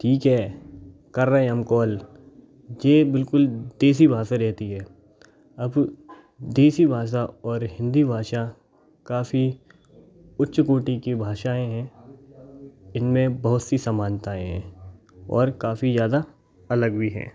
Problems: background sounds at intervals, background conversations at intervals